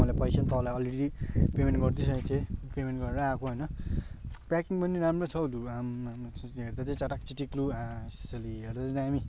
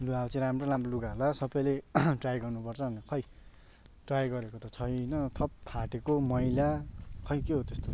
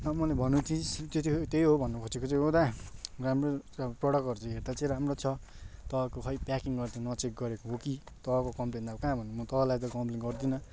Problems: none marked